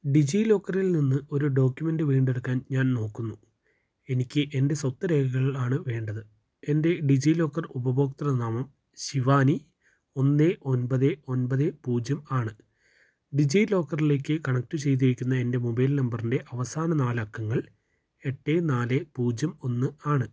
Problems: low volume